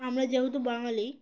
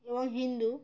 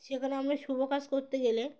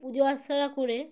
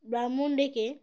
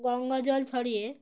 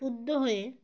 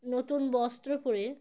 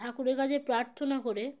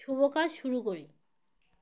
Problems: none marked